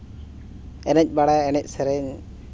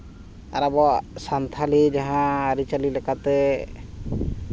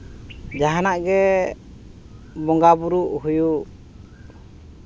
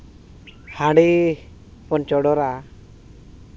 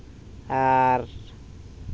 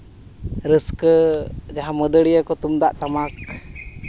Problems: background sounds at intervals